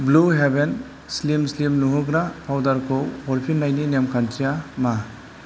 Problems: constant background noise